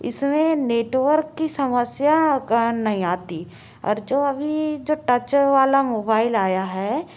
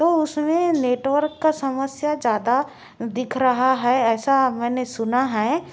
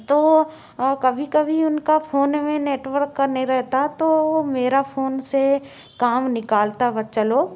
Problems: constant background noise